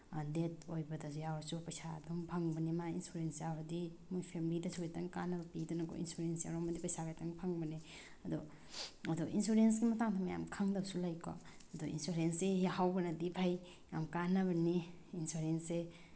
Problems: none marked